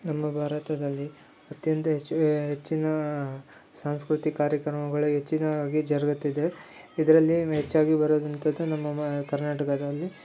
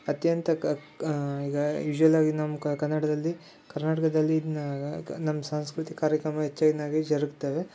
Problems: none marked